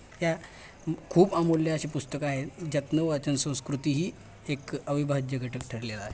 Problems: constant background noise